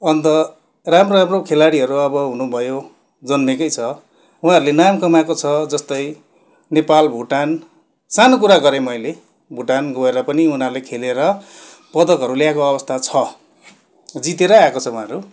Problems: constant background noise